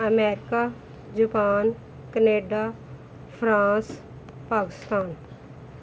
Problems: none marked